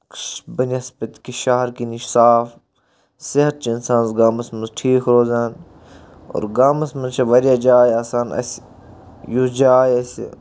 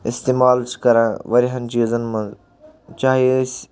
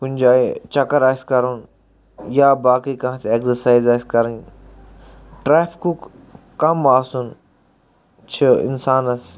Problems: constant background noise